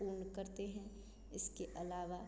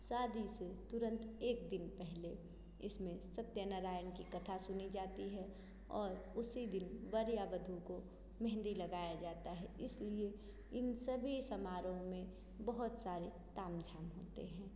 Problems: constant background noise, echo